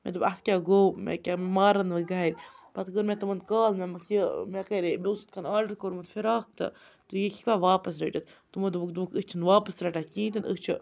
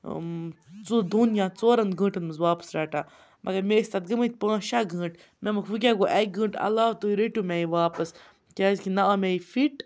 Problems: background sounds at intervals, background conversations at intervals